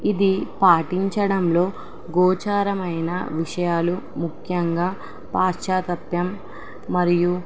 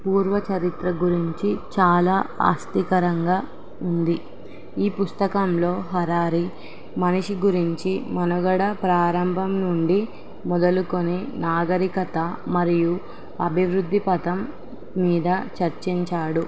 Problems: constant background noise